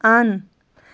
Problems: constant background noise